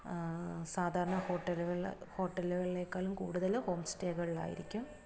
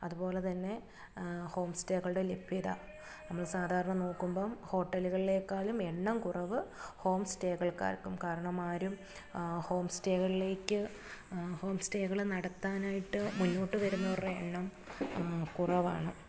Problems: low volume